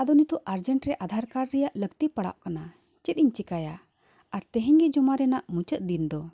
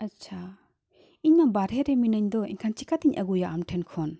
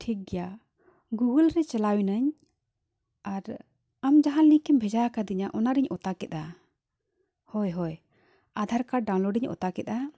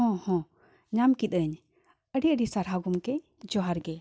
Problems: none marked